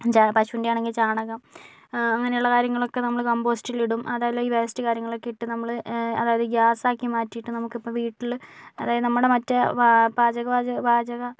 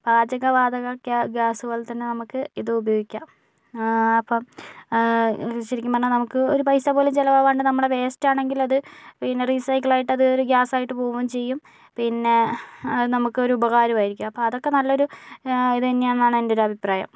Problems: none marked